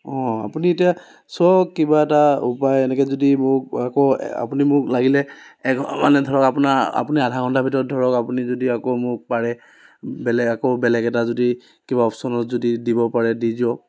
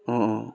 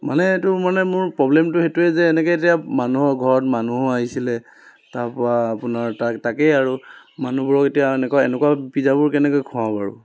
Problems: constant background noise